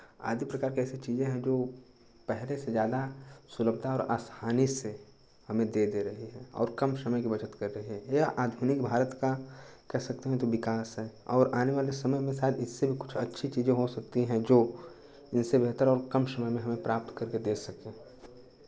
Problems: constant background noise, continuous background conversations